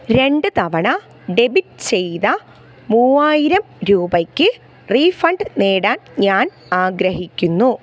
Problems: background sounds at intervals